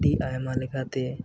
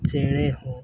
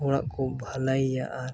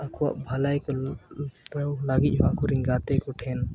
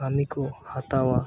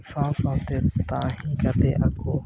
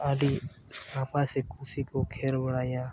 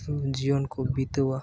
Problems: background sounds at intervals